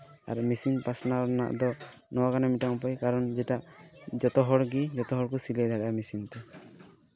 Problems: background sounds at intervals, continuous background conversations